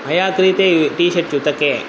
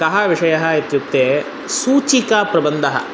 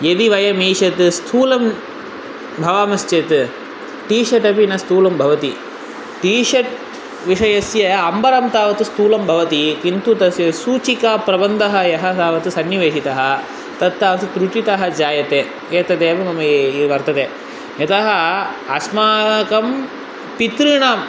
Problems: constant background noise